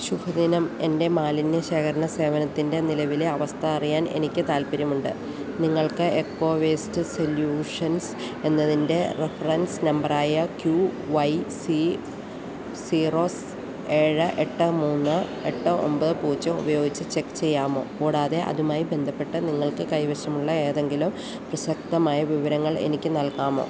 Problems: constant background noise